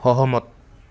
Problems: none marked